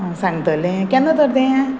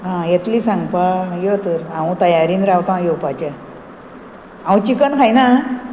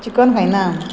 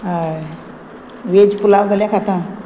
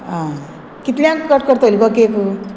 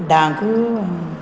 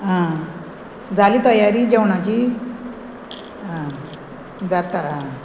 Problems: background sounds at intervals